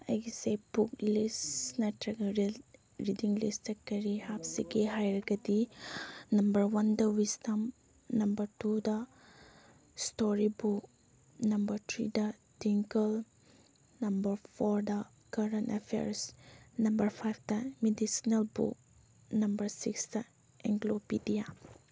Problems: background sounds at intervals